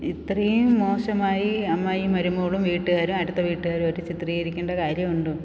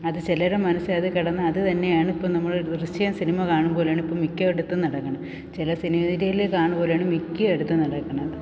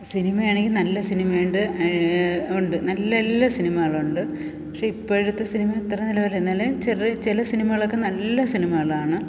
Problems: none marked